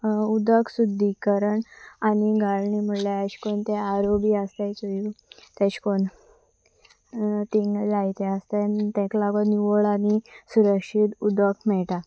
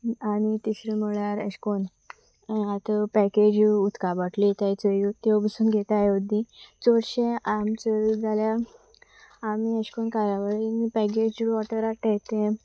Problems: none marked